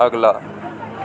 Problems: constant background noise